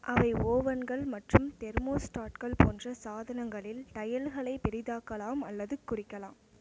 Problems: constant background noise